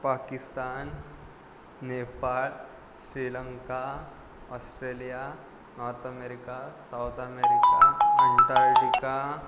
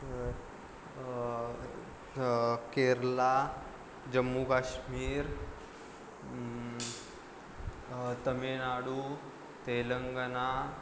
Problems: background sounds at intervals